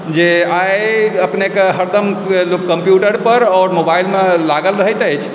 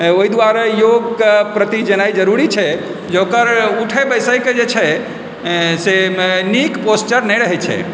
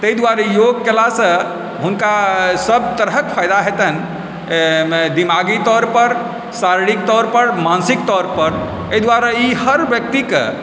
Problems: constant background noise, background conversations at intervals